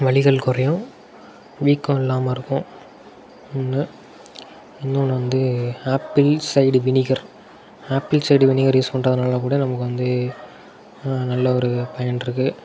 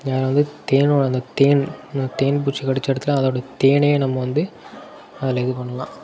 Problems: constant background noise